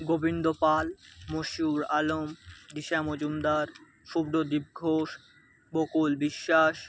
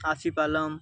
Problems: background sounds at intervals